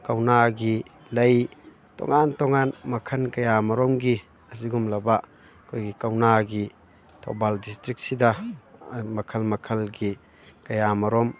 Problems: constant background noise, background conversations at intervals